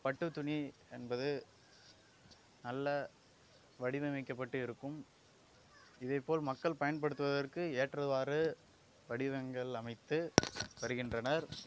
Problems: low volume